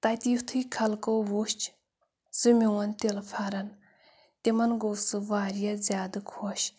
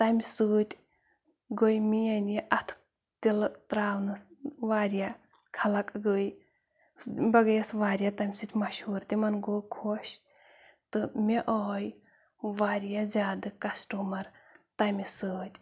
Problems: none marked